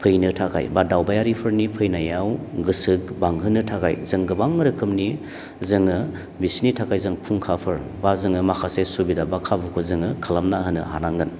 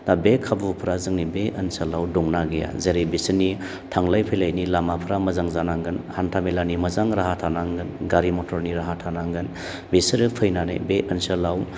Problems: none marked